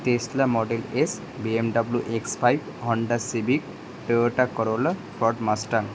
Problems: constant background noise